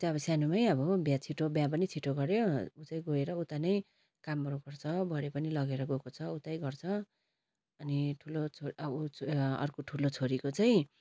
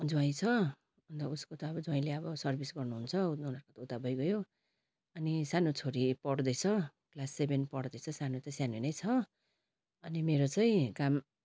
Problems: constant background noise